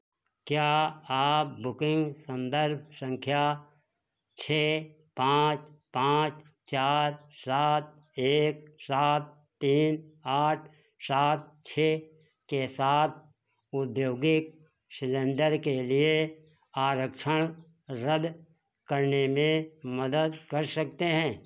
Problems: background sounds at intervals